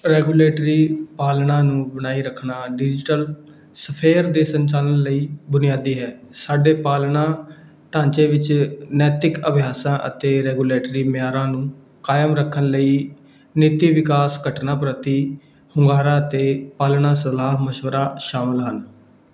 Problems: background sounds at intervals